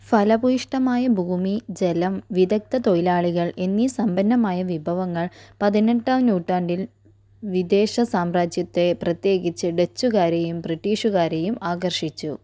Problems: low volume